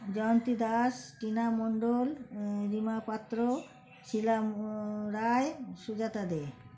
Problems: constant background noise